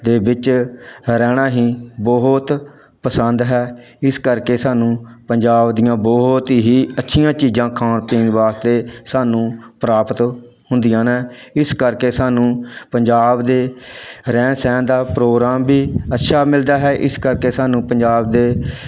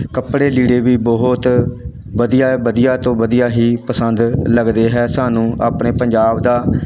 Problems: none marked